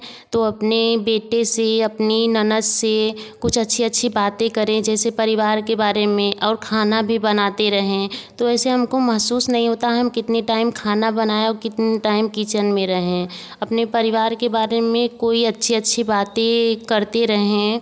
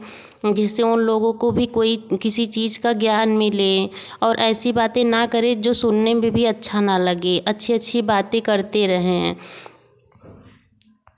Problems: none marked